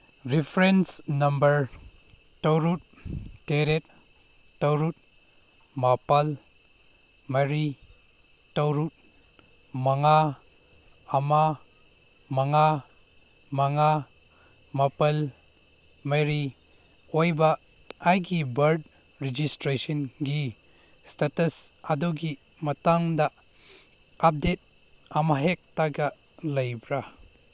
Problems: none marked